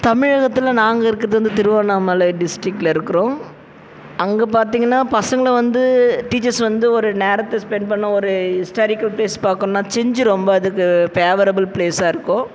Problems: background sounds at intervals